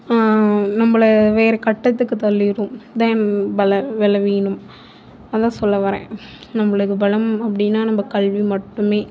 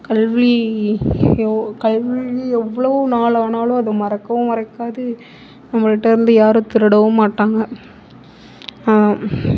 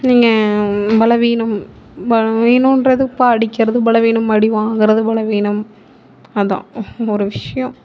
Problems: background sounds at intervals